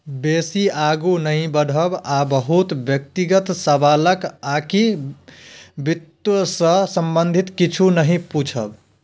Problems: none marked